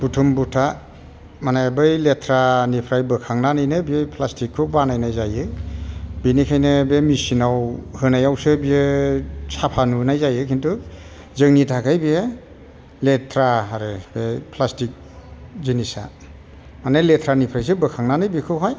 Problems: constant background noise